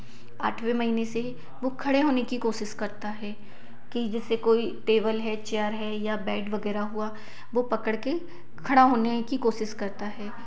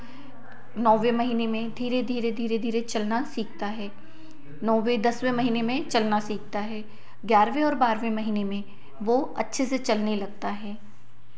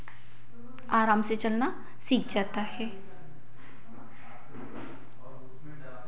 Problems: none marked